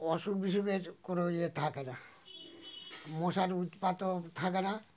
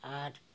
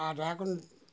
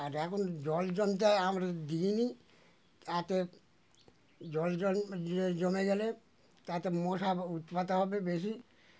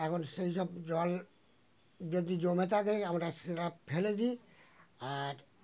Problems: none marked